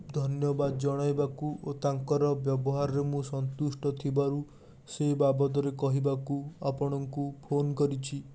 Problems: constant background noise